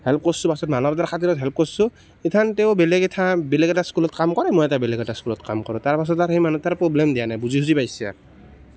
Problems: constant background noise